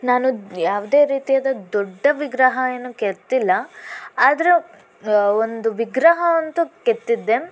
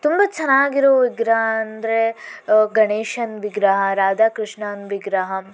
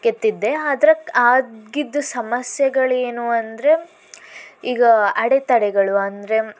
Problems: constant background noise